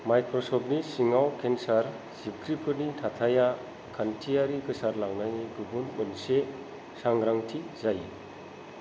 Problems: low volume